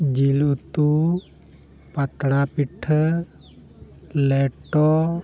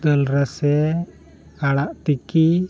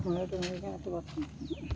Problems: none marked